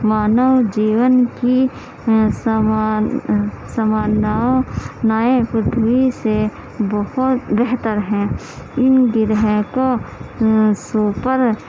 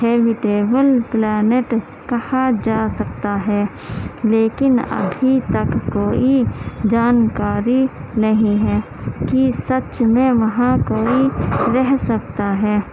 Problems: constant background noise